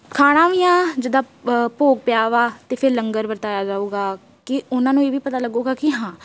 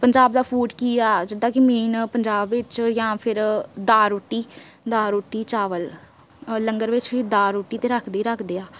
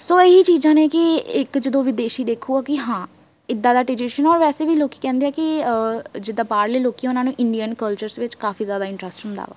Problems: none marked